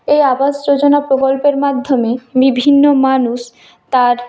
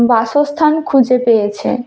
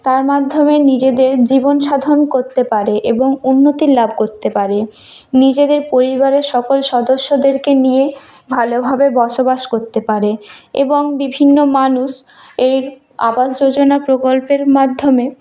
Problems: none marked